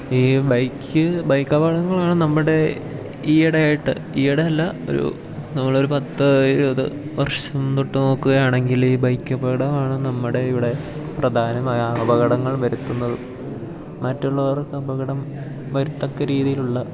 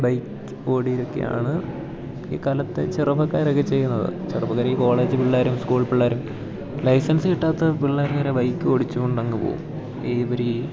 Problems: constant background noise